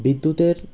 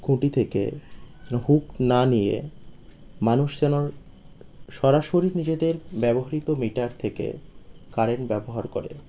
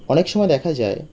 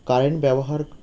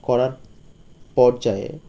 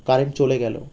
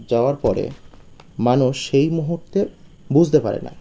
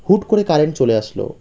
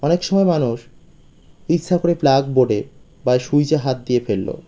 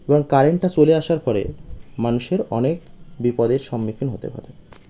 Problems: none marked